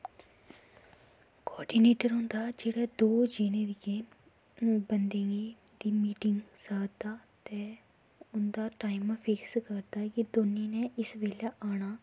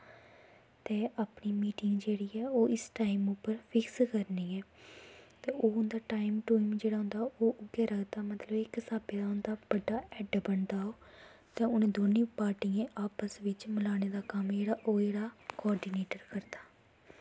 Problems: low volume